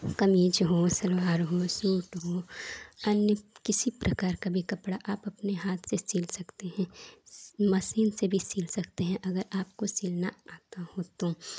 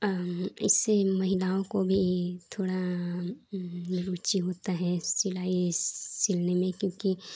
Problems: none marked